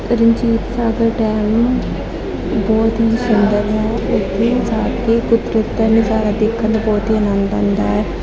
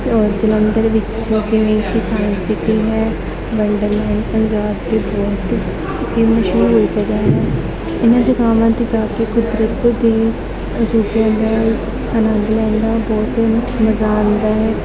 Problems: constant background noise, continuous background conversations